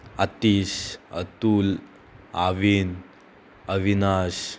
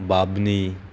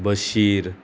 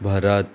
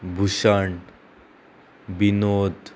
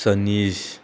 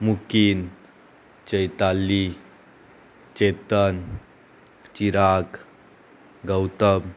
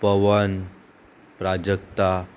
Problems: constant background noise, continuous background conversations